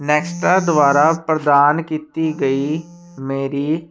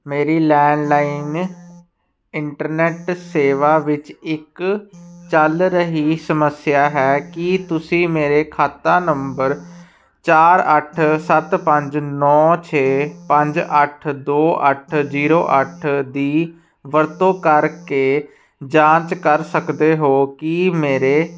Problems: background sounds at intervals